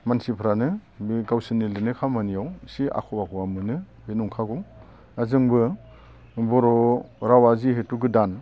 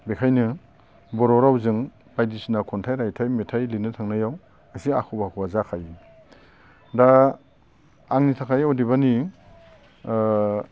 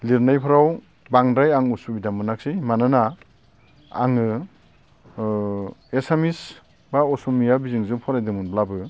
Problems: constant background noise